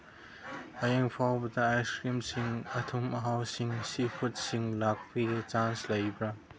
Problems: background sounds at intervals